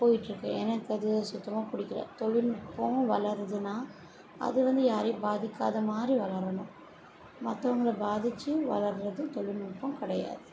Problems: low volume